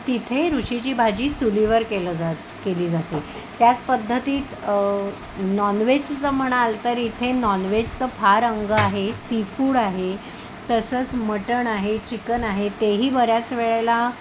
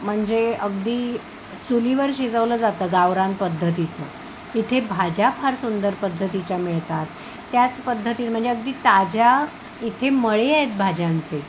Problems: none marked